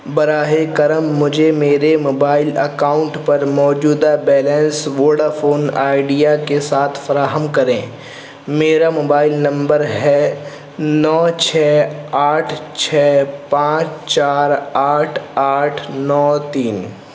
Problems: constant background noise